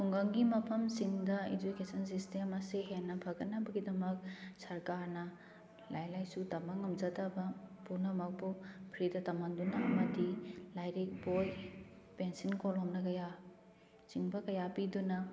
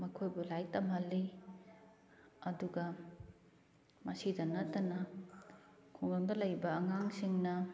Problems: background sounds at intervals